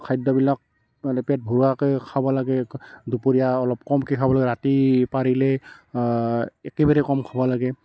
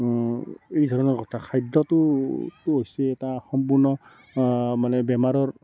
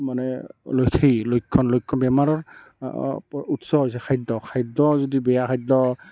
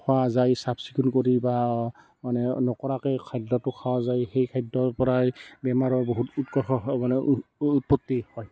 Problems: constant background noise, continuous background conversations